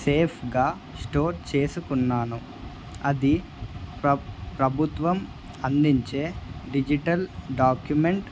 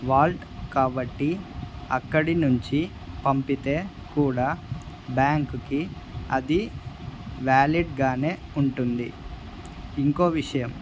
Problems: none marked